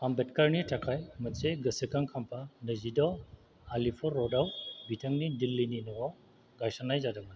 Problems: none marked